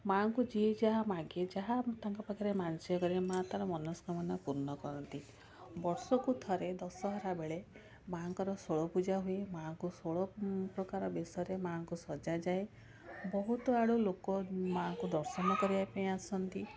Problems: constant background noise, continuous background conversations